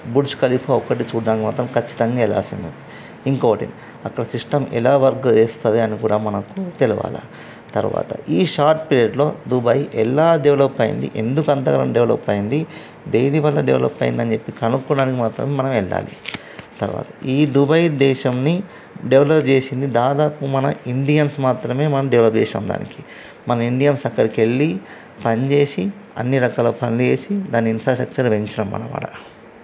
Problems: constant background noise